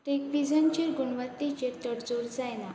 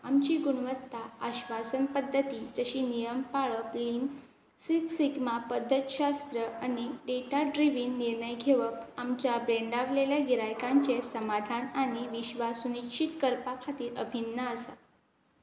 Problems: constant background noise